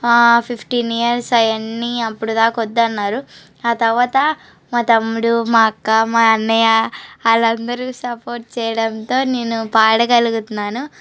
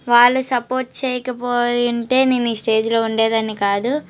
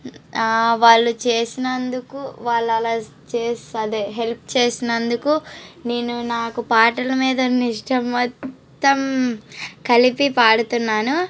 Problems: background sounds at intervals